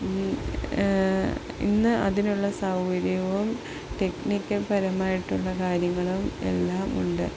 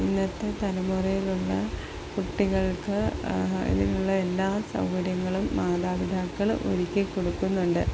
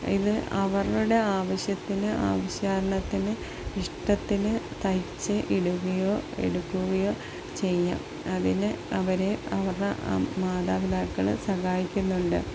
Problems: none marked